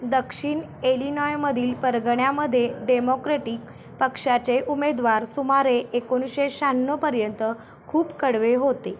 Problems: none marked